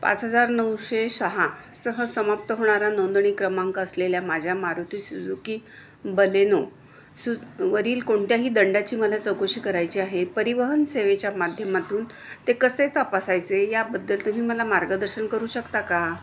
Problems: constant background noise, continuous background conversations